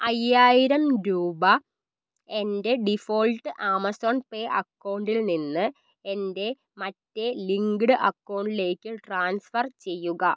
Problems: none marked